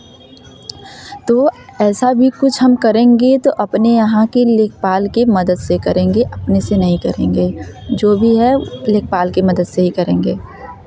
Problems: none marked